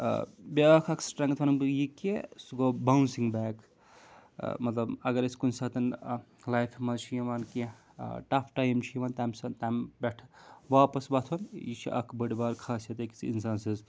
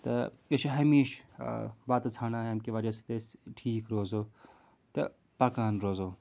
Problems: background sounds at intervals